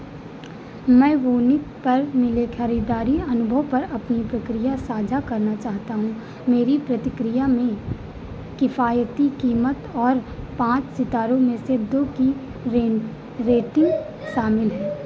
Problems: constant background noise